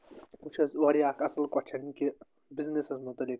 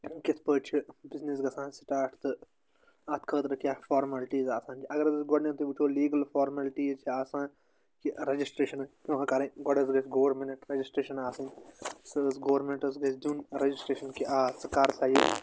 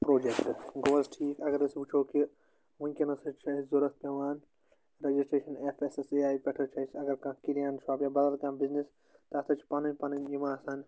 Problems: constant background noise